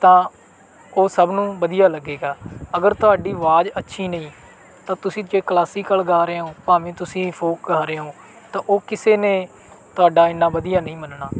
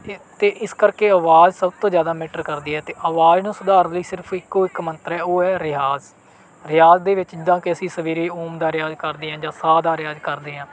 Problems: background sounds at intervals